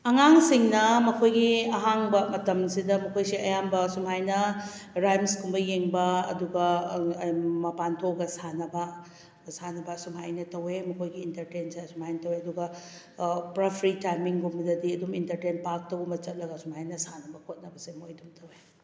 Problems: none marked